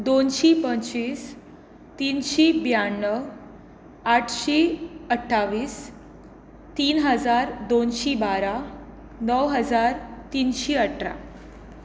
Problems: constant background noise